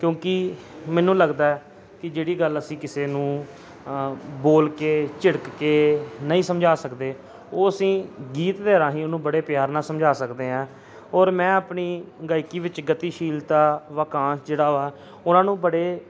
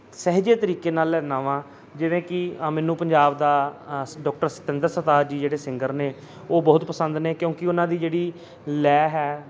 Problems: constant background noise